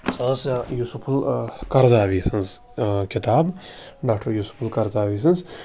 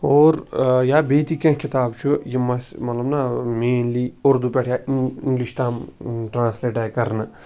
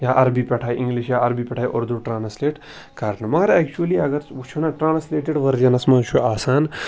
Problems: background sounds at intervals